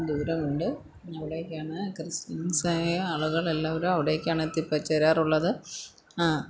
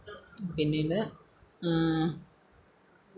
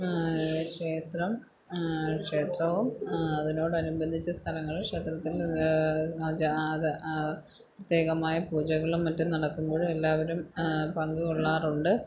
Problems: low volume